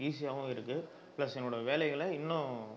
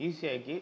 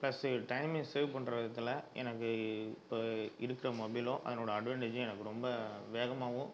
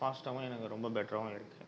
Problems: none marked